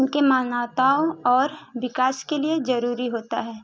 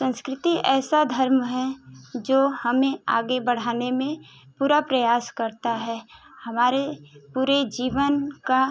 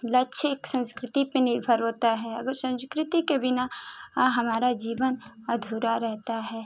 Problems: constant background noise